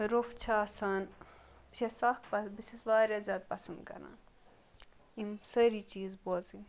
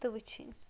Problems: background sounds at intervals